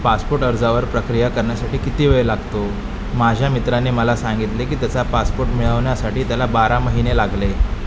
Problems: constant background noise